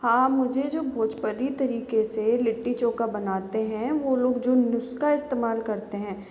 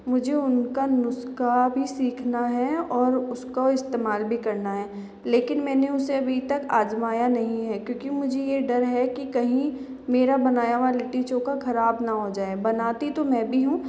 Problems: constant background noise